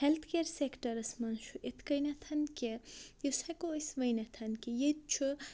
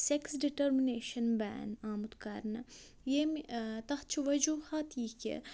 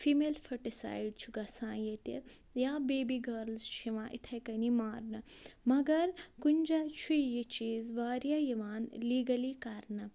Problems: low volume